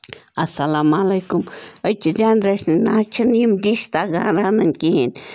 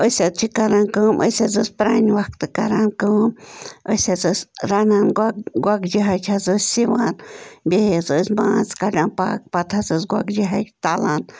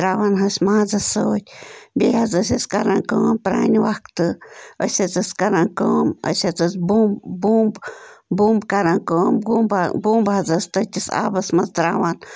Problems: constant background noise